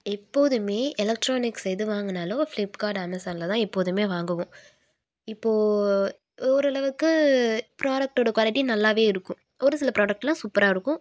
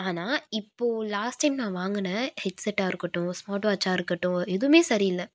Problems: none marked